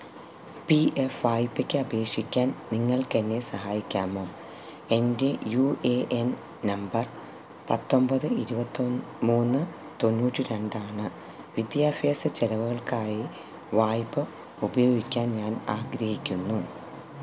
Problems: constant background noise